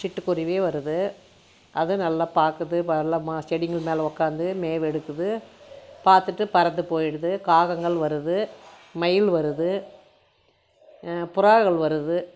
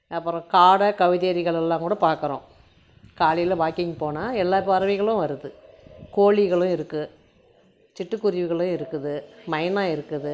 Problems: none marked